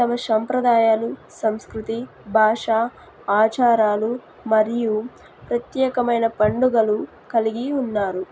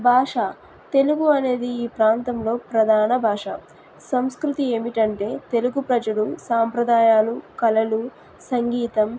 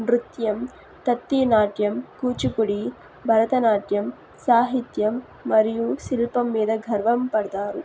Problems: none marked